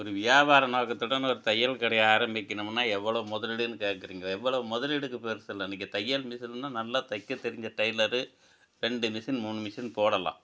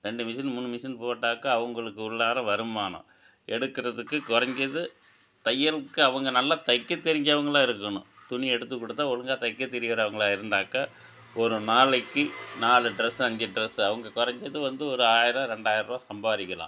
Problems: none marked